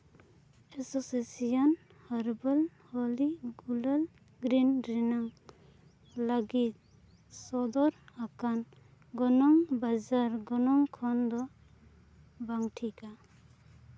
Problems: background sounds at intervals, low volume